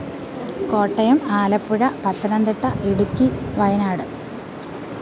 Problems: constant background noise